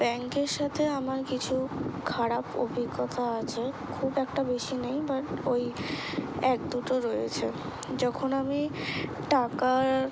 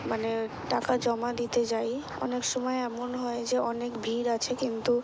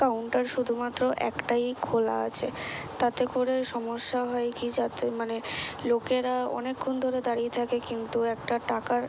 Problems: background sounds at intervals